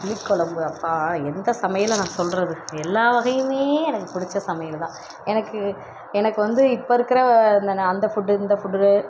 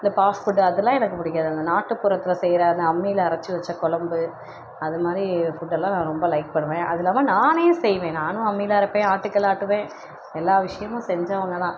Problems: constant background noise